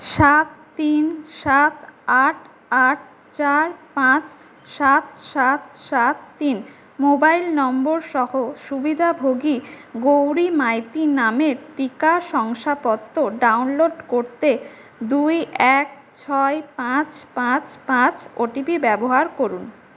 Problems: none marked